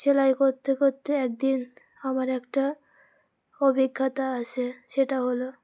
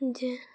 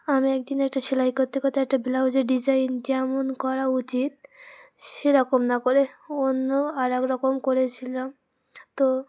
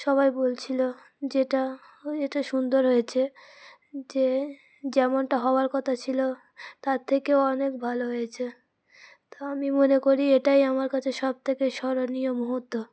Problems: constant background noise, background conversations at intervals